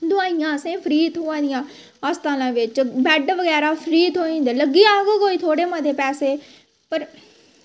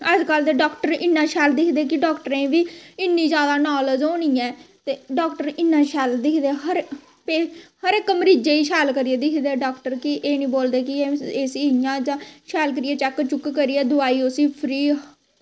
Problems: constant background noise